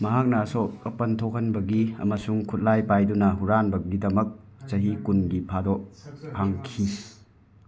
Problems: continuous background conversations